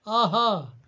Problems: none marked